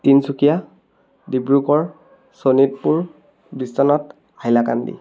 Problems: none marked